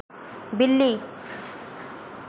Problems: none marked